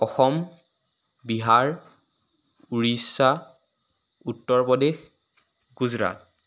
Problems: none marked